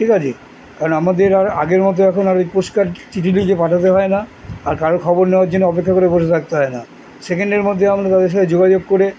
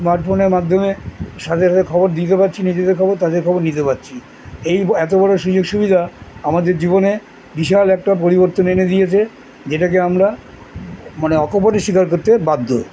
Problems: constant background noise